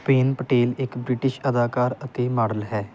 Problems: background sounds at intervals